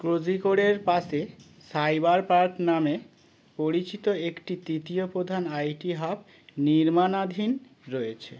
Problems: background sounds at intervals